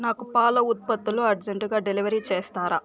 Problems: constant background noise, continuous background conversations